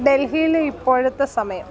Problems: none marked